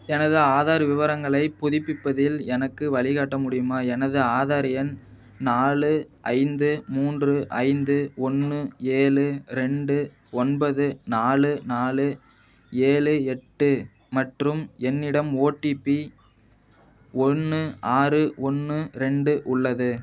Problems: none marked